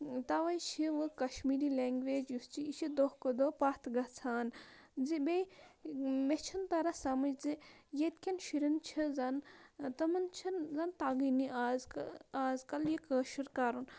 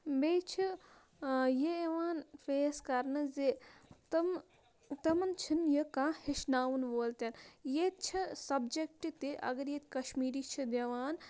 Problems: none marked